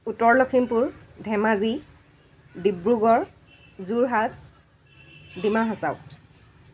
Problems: constant background noise